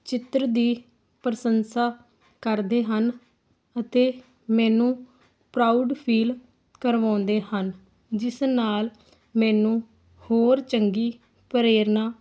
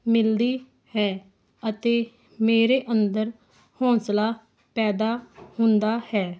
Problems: constant background noise